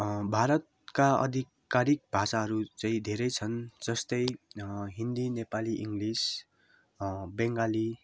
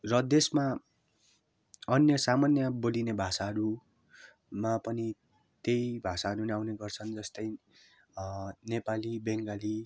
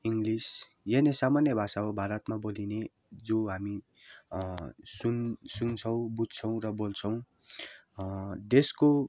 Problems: background sounds at intervals